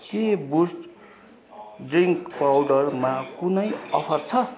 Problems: continuous background conversations